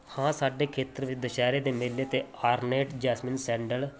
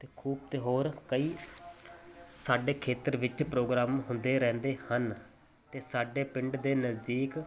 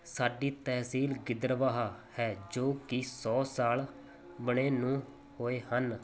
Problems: constant background noise